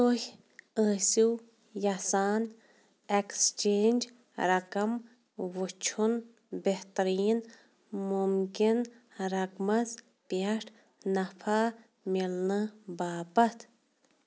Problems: none marked